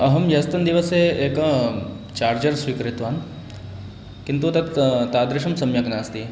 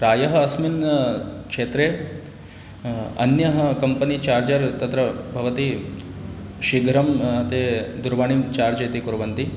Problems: constant background noise